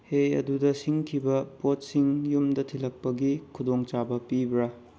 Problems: background sounds at intervals, low volume